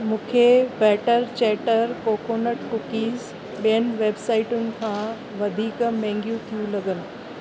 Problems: constant background noise